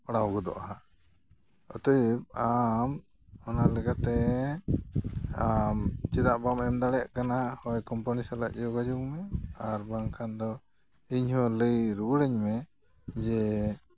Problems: background sounds at intervals